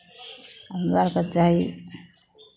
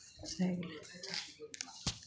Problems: background conversations at intervals